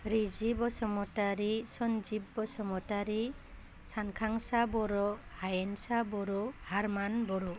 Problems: none marked